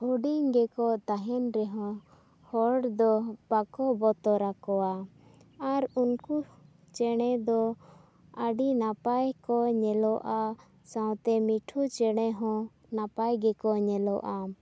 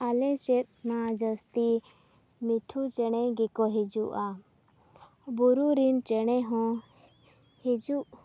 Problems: none marked